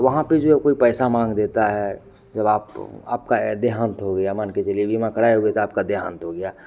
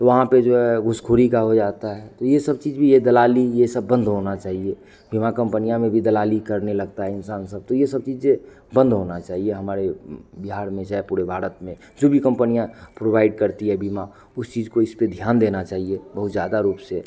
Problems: none marked